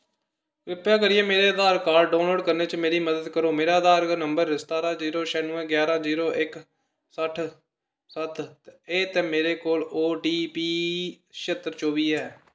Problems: constant background noise, echo